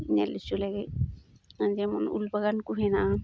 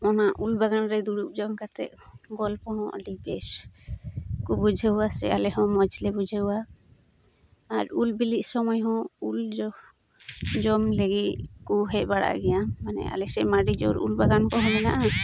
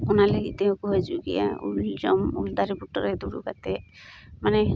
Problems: constant background noise